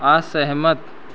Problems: constant background noise